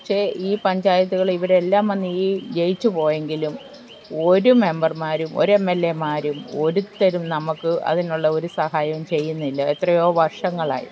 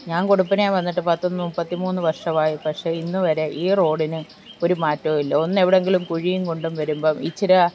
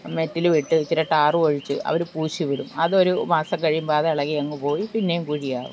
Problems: background sounds at intervals